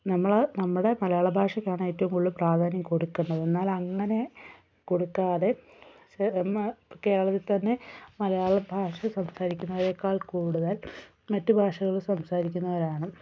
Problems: none marked